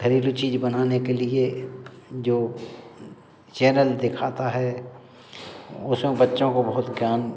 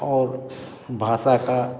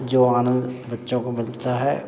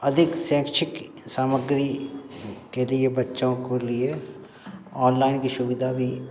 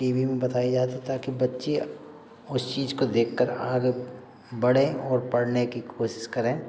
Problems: background sounds at intervals, background conversations at intervals